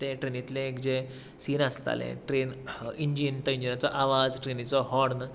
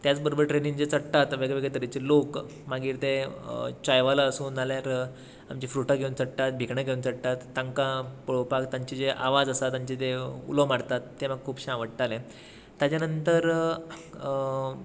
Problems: none marked